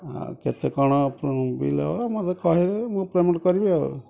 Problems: background conversations at intervals